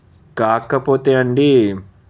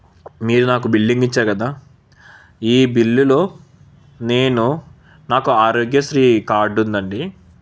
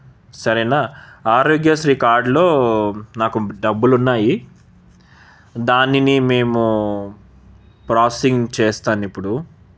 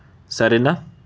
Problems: none marked